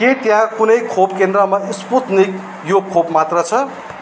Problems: none marked